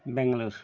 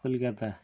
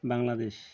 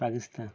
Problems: none marked